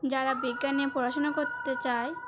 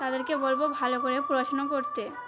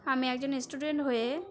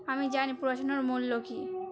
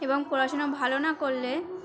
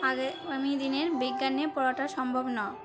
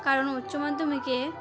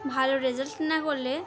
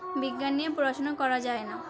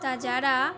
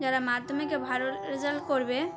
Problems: continuous background conversations